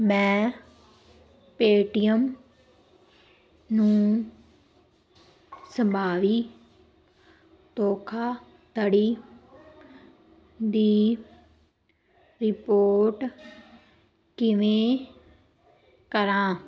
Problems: none marked